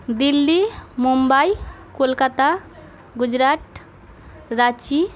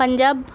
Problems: continuous background conversations